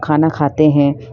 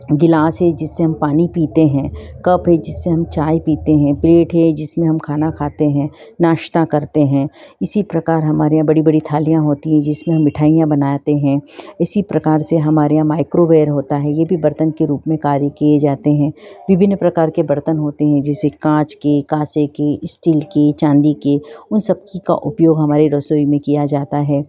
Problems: background sounds at intervals